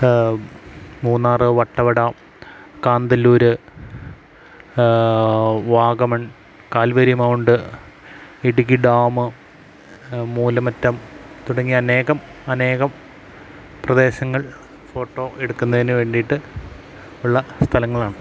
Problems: constant background noise